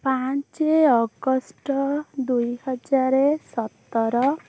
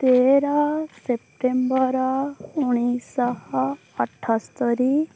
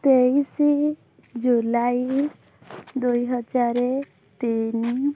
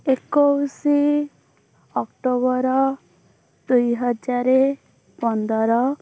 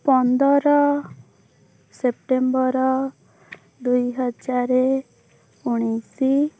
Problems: background sounds at intervals, background conversations at intervals